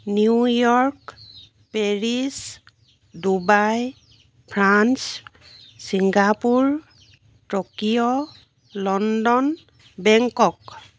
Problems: background sounds at intervals